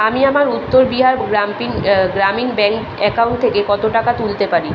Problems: none marked